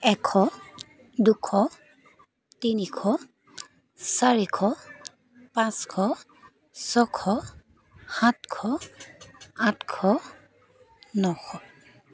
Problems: constant background noise, continuous background conversations